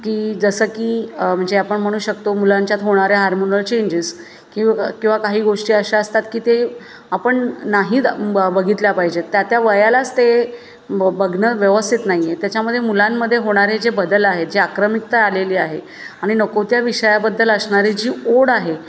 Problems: constant background noise, background conversations at intervals